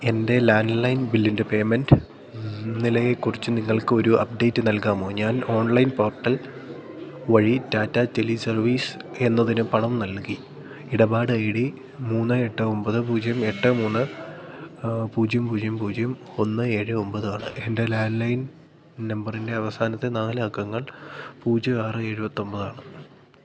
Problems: low volume